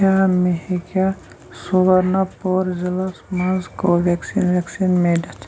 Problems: none marked